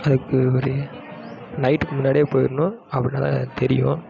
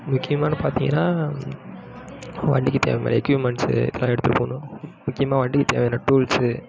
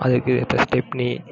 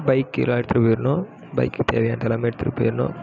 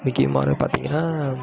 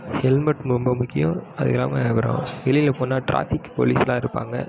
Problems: none marked